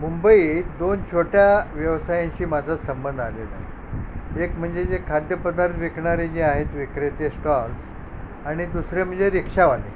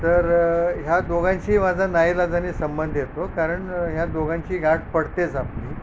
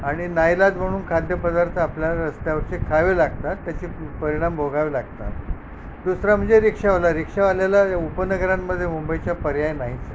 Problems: background sounds at intervals